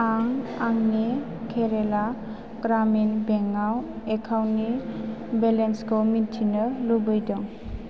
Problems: constant background noise